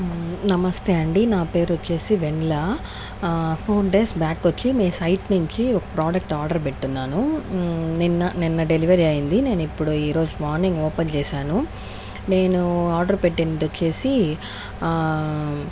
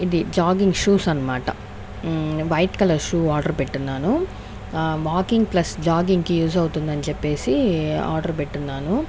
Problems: none marked